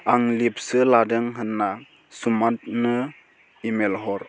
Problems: constant background noise